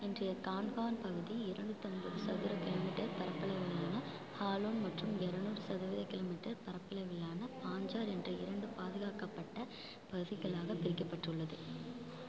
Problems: low volume